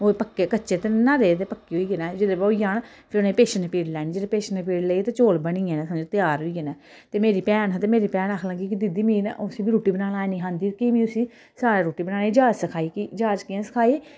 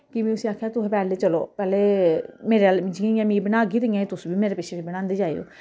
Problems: none marked